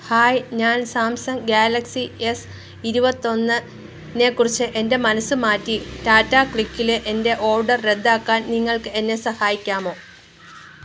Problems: constant background noise